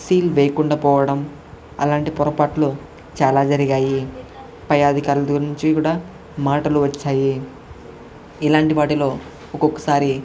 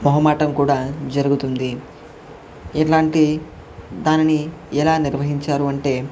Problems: constant background noise, background conversations at intervals